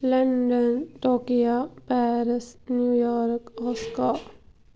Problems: background sounds at intervals